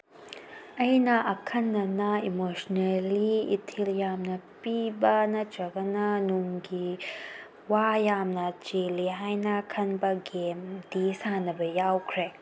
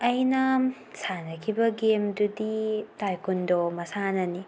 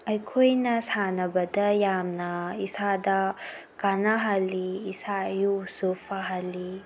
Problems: background sounds at intervals